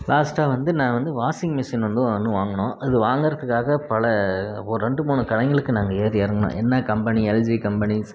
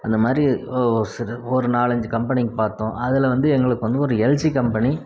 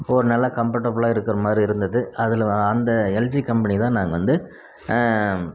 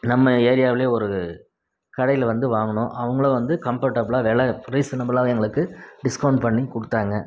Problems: none marked